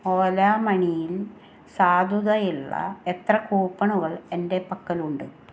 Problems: background sounds at intervals